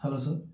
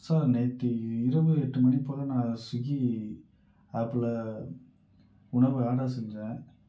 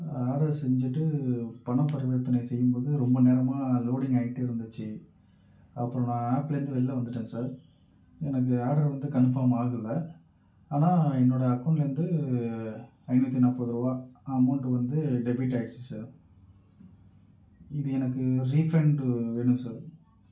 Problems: low volume